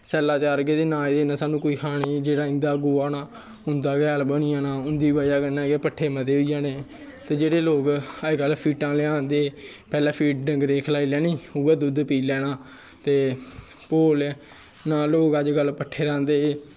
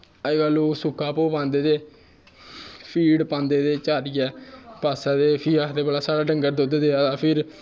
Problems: none marked